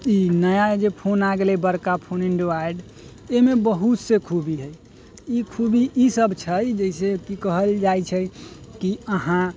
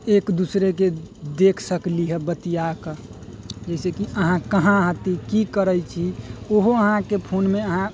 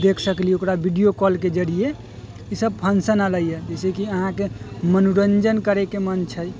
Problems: none marked